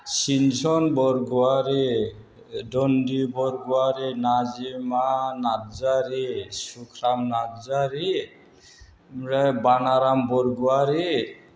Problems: constant background noise